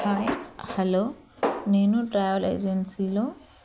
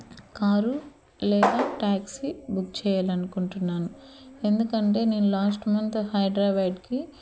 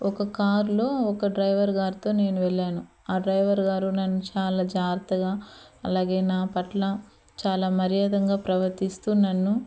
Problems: constant background noise